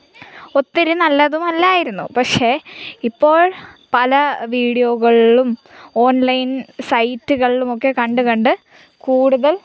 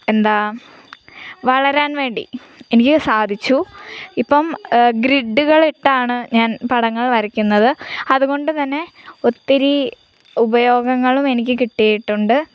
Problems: none marked